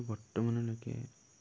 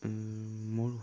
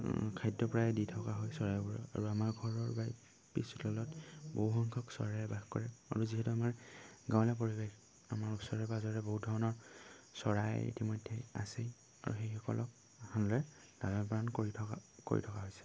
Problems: none marked